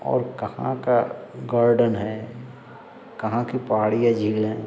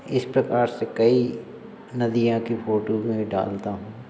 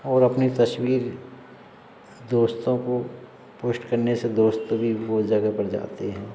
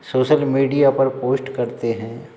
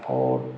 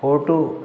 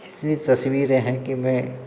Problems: constant background noise, background conversations at intervals